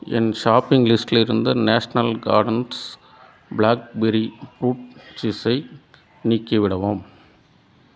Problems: none marked